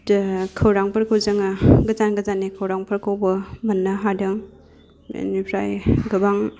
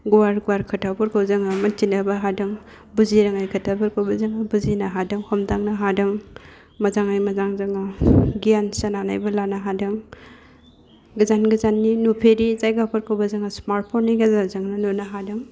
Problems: low volume